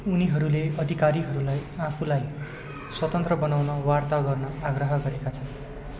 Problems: constant background noise